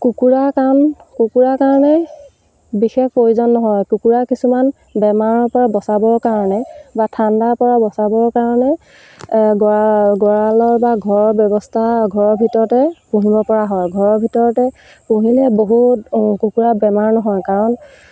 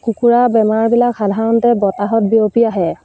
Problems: none marked